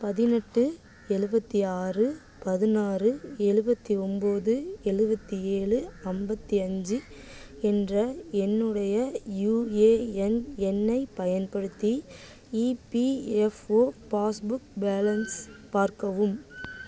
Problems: constant background noise, background conversations at intervals